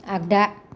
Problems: none marked